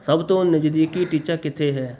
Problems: background sounds at intervals